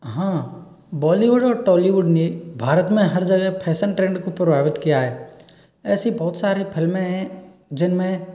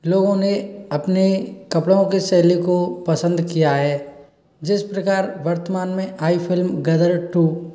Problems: none marked